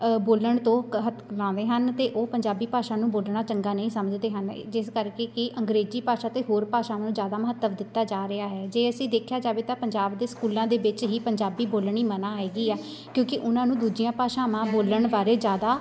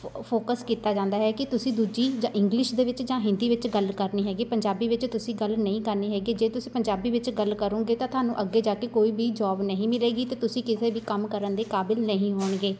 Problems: constant background noise, background conversations at intervals